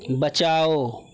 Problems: constant background noise